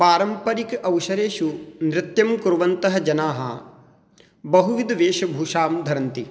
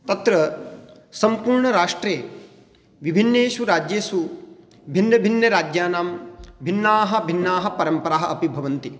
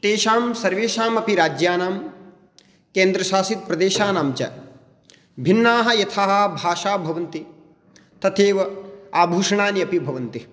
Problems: none marked